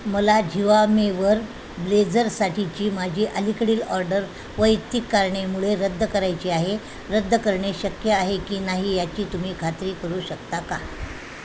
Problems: constant background noise